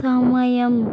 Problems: constant background noise